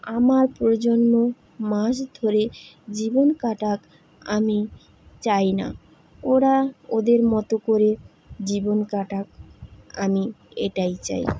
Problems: none marked